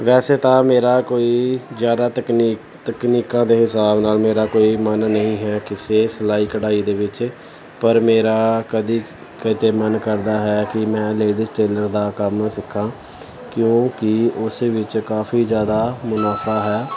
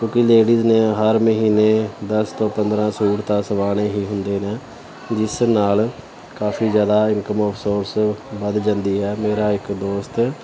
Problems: constant background noise